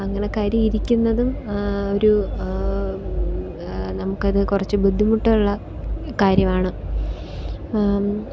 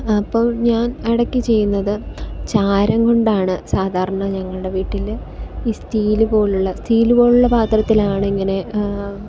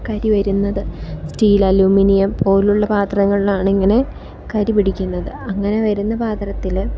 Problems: none marked